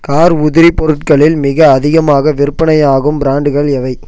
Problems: none marked